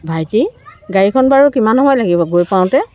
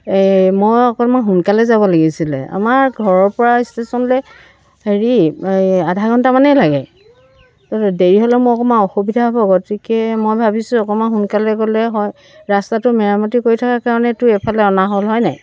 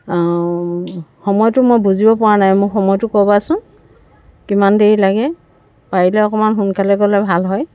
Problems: none marked